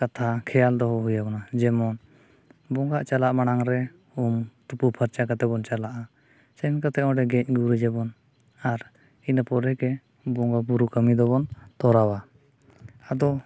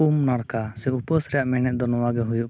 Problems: none marked